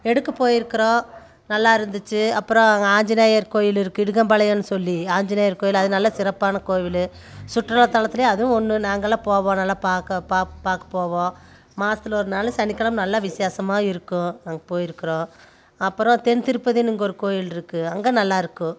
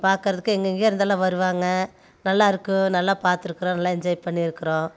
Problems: none marked